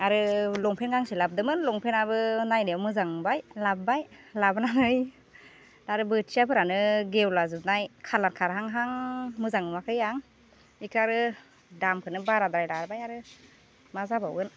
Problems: constant background noise